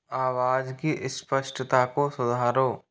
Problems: background sounds at intervals